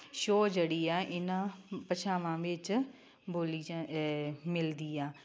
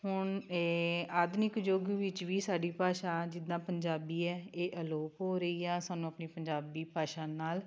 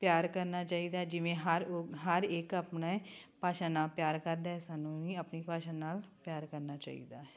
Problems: constant background noise